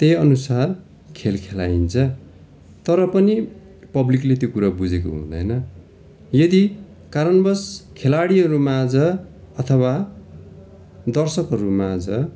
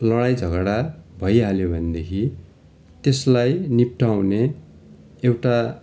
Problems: constant background noise